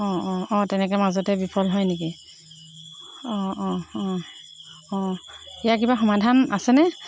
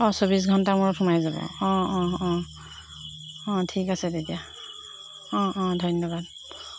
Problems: constant background noise